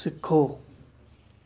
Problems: none marked